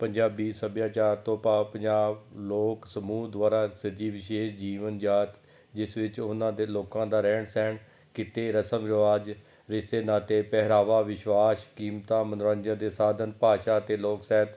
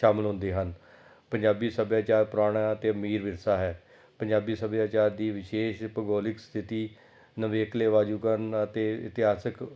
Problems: background sounds at intervals